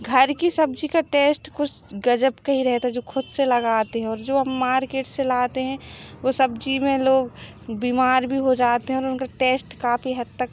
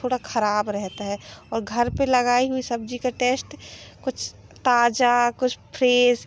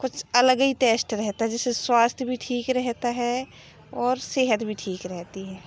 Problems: background sounds at intervals